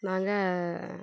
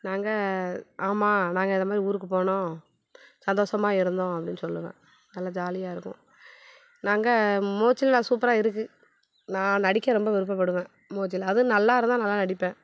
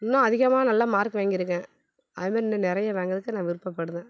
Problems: none marked